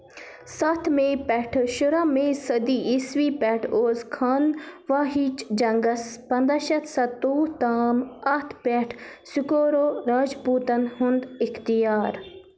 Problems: background sounds at intervals